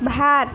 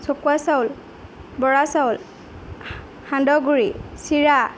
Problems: background sounds at intervals